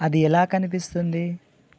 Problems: none marked